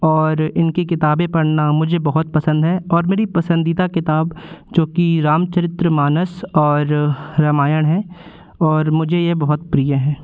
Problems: constant background noise